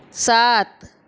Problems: none marked